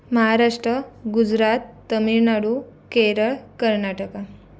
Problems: none marked